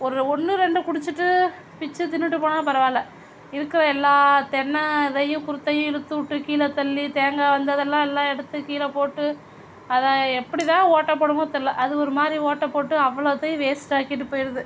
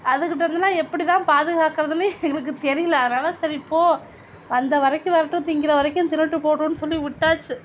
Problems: constant background noise